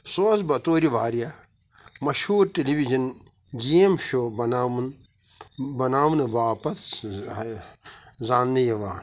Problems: background sounds at intervals, background conversations at intervals